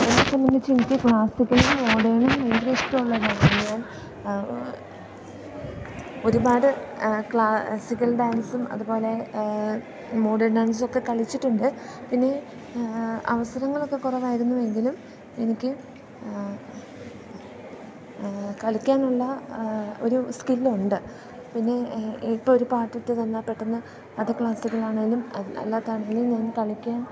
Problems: background sounds at intervals